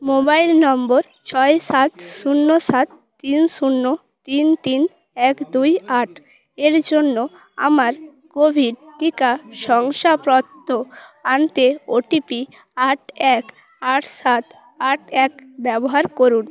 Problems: background sounds at intervals